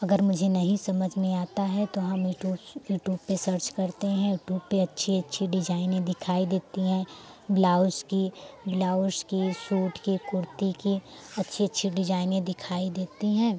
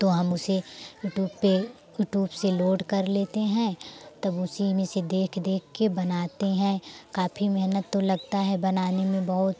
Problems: constant background noise